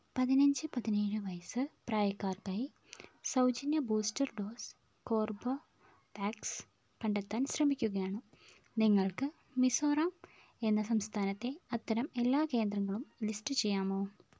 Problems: low volume